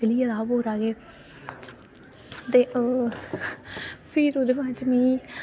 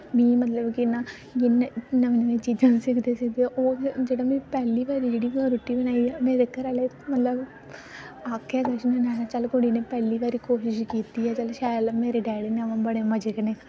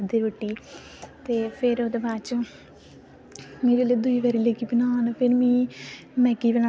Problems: constant background noise